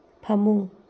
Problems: none marked